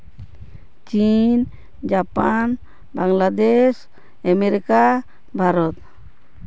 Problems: constant background noise